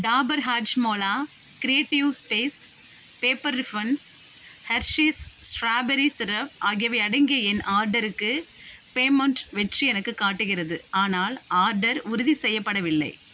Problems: constant background noise